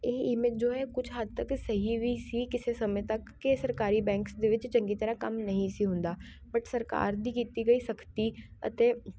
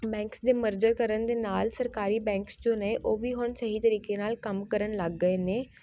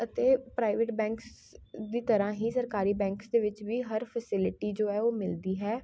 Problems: constant background noise